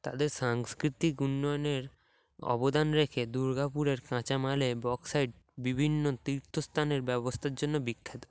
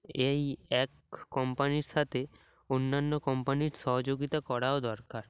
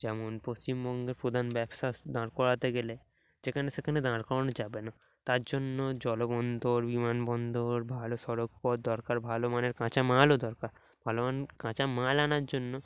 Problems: background sounds at intervals